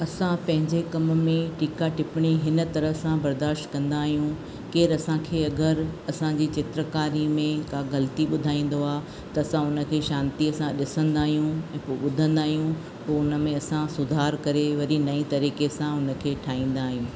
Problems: constant background noise